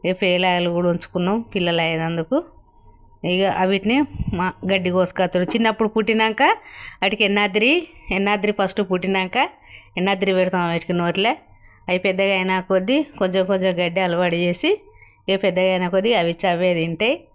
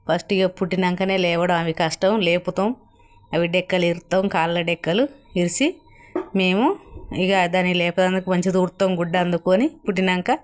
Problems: none marked